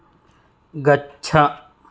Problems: none marked